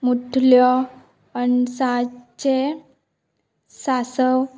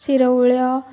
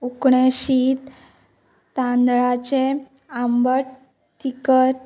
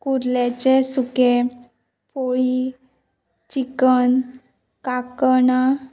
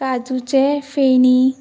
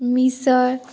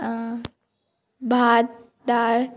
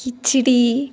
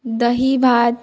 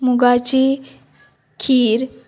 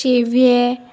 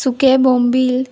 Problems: none marked